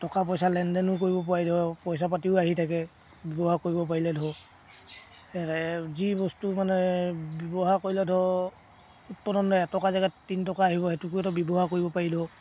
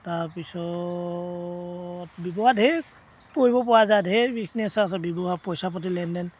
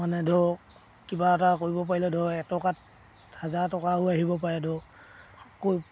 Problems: none marked